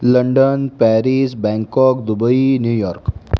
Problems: constant background noise